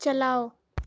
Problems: constant background noise